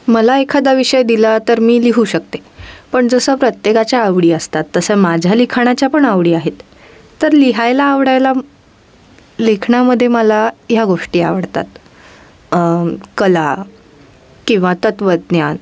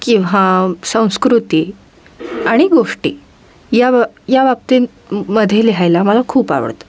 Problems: constant background noise